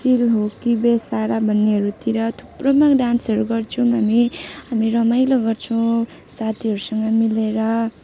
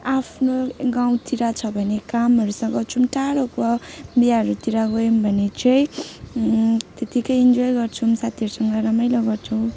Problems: constant background noise